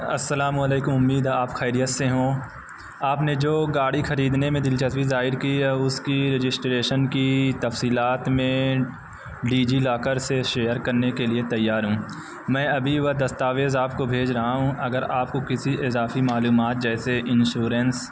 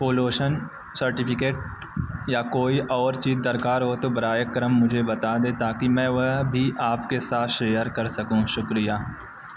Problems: constant background noise